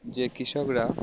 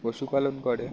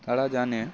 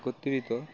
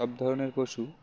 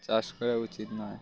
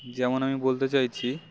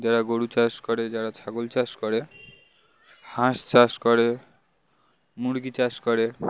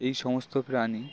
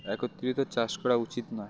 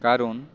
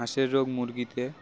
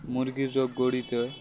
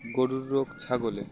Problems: none marked